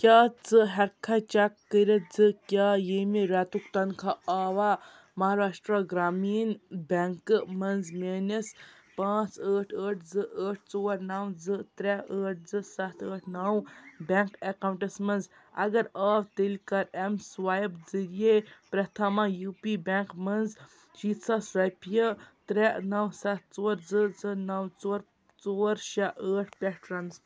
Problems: background sounds at intervals